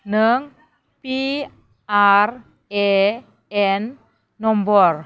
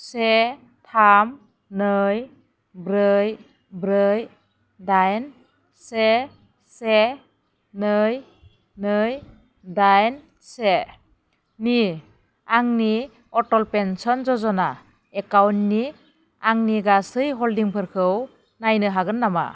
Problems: none marked